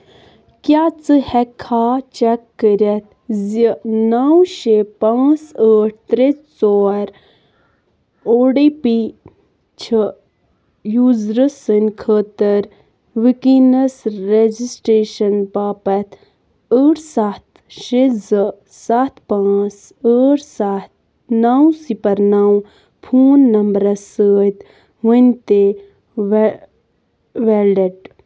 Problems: constant background noise